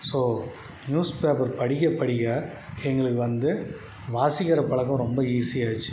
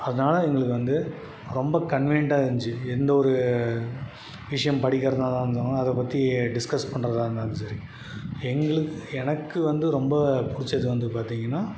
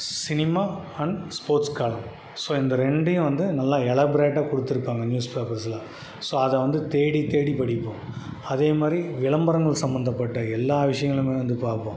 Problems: none marked